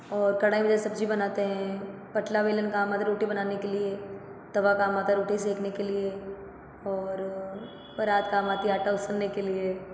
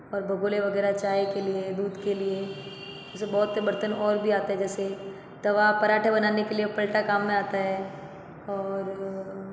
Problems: constant background noise